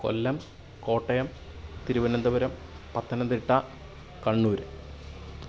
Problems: none marked